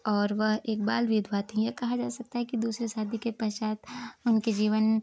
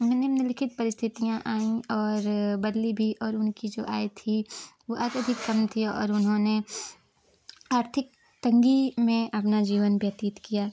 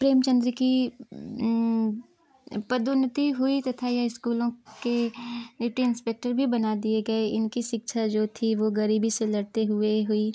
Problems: none marked